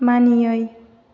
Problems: none marked